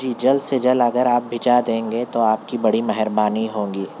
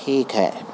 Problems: constant background noise